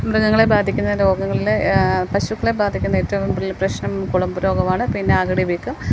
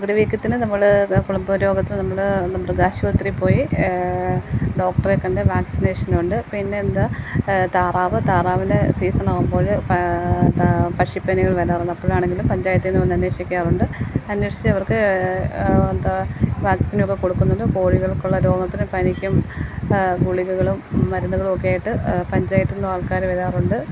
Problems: constant background noise